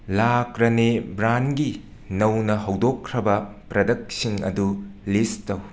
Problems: constant background noise